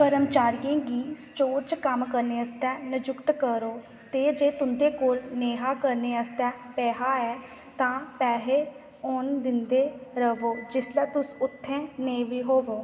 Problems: constant background noise, echo